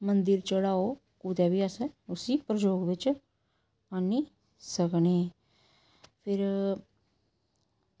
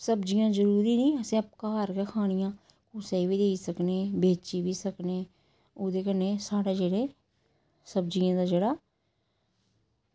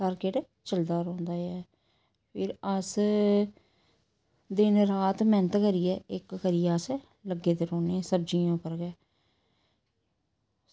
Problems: none marked